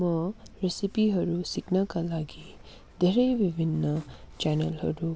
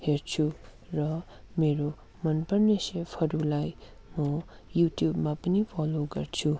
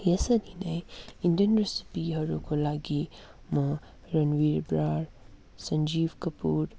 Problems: none marked